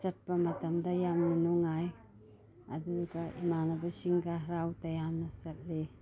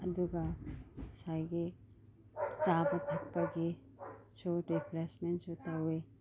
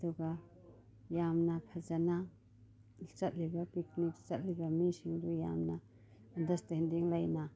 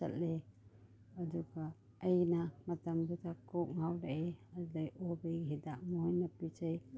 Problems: background sounds at intervals, background conversations at intervals